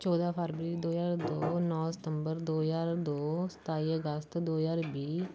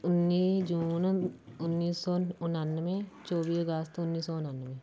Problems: constant background noise